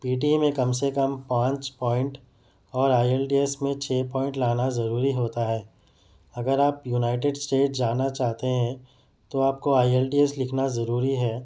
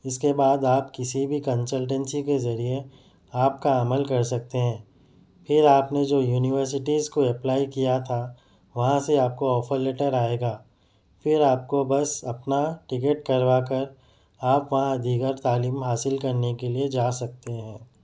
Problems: none marked